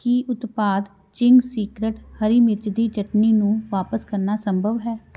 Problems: background sounds at intervals